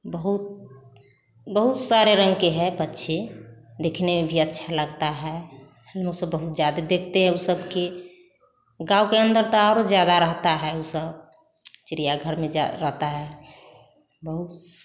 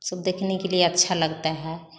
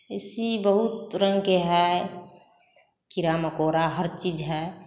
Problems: none marked